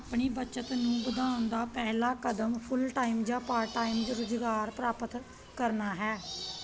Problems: background sounds at intervals, background conversations at intervals